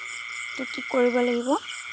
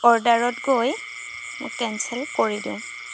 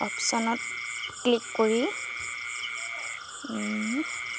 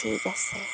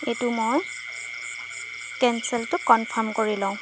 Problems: constant background noise